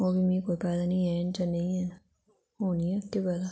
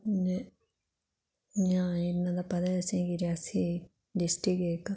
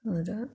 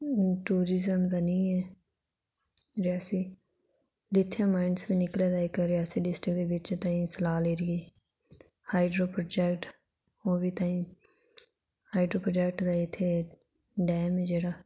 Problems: low volume